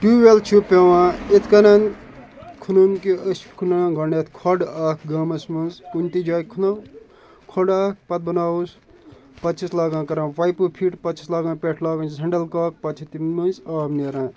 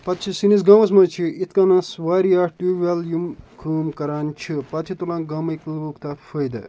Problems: constant background noise